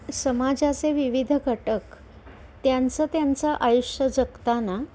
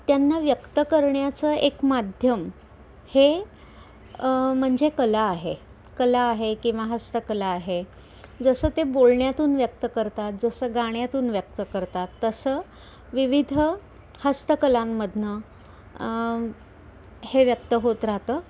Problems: none marked